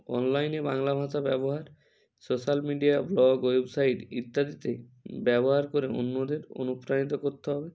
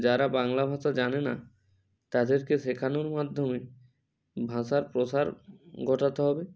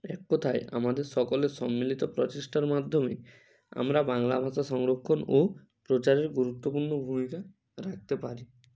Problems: none marked